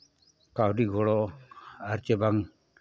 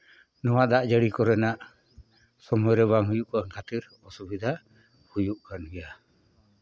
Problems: none marked